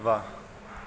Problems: constant background noise